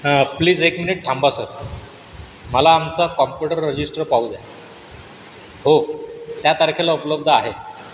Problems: constant background noise